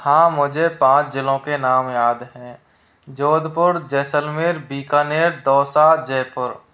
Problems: constant background noise